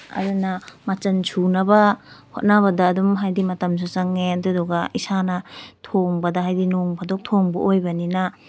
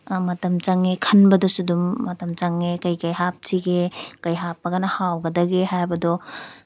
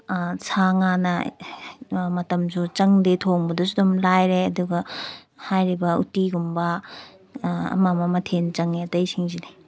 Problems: background sounds at intervals